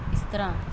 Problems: none marked